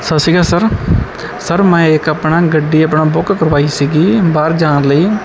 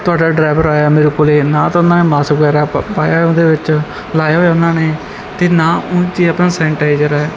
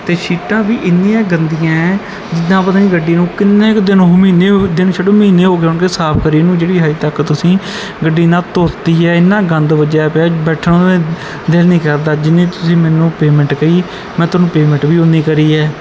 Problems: none marked